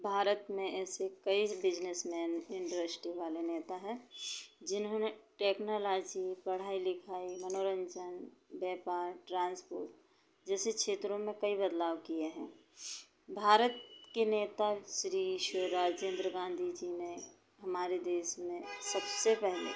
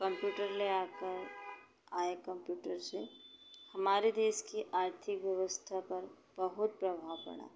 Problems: constant background noise